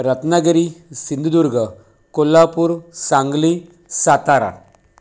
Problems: none marked